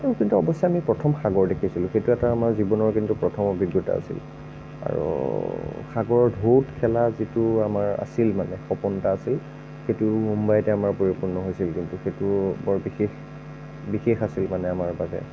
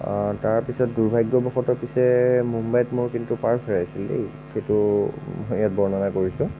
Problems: none marked